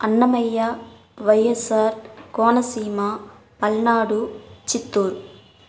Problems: none marked